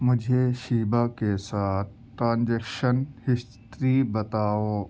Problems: none marked